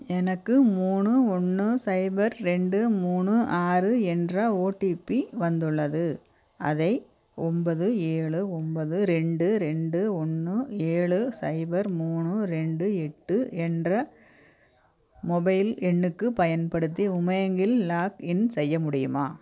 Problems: none marked